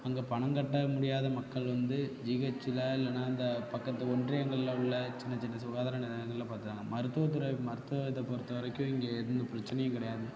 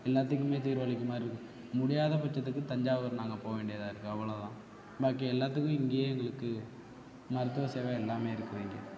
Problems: constant background noise, continuous background conversations, low volume